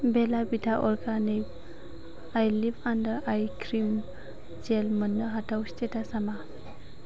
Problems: constant background noise